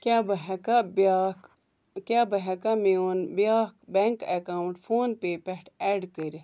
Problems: background conversations at intervals